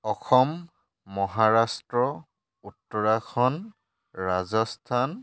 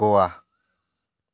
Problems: none marked